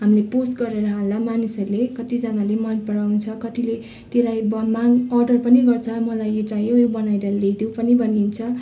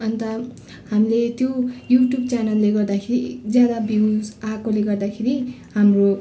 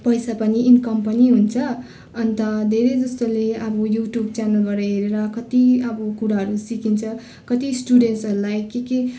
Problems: continuous background conversations